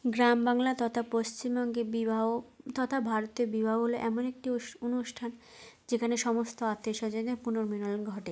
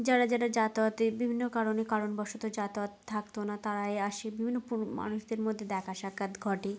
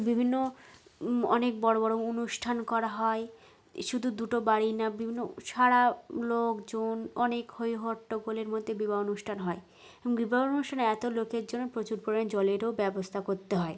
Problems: background sounds at intervals